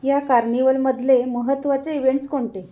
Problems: constant background noise, continuous background conversations